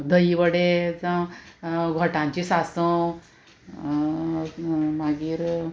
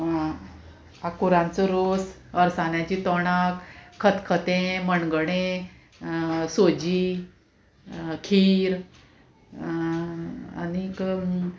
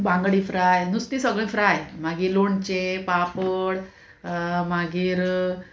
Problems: constant background noise, continuous background conversations